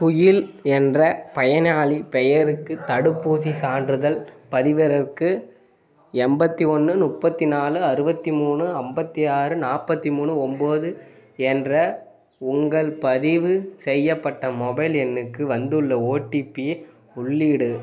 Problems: background conversations at intervals